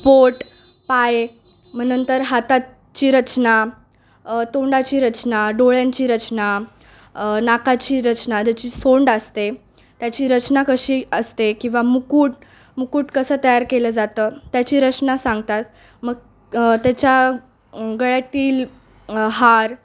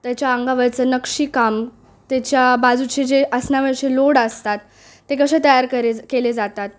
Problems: background sounds at intervals, background conversations at intervals